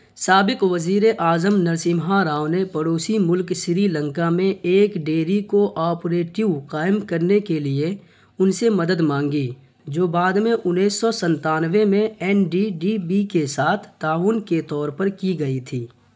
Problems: constant background noise